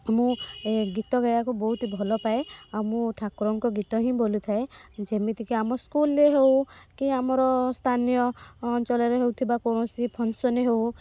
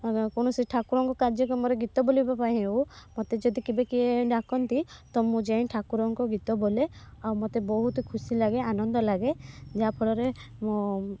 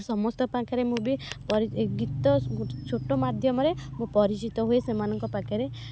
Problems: background sounds at intervals, low volume